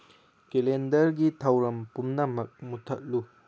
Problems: none marked